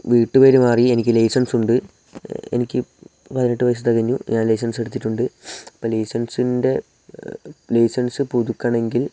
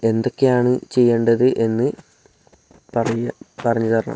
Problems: none marked